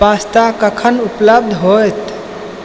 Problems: constant background noise